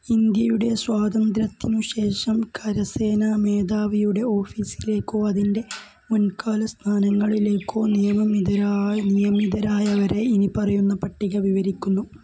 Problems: low volume